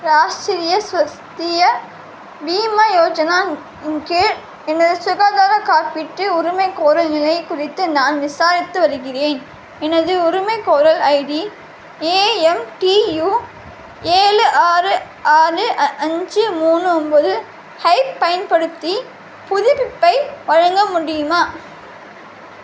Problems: constant background noise